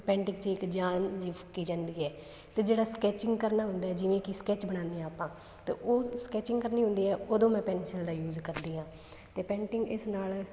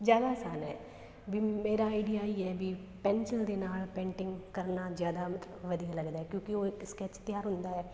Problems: background sounds at intervals